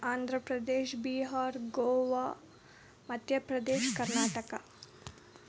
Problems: background sounds at intervals